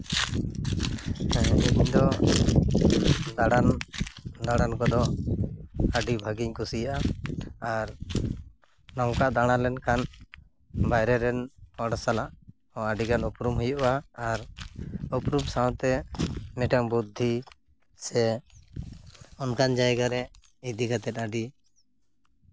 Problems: none marked